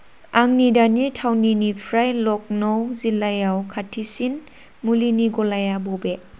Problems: constant background noise